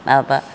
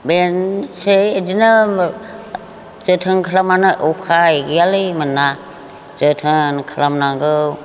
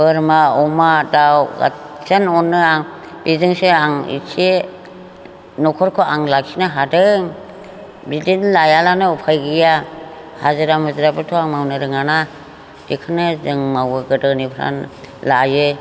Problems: constant background noise